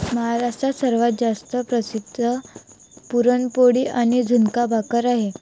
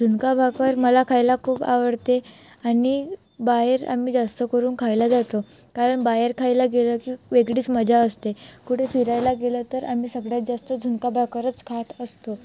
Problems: constant background noise, background conversations at intervals